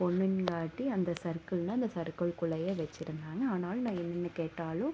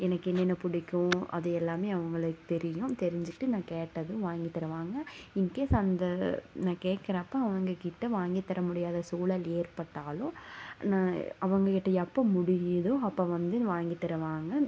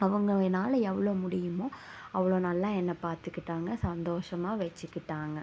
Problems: constant background noise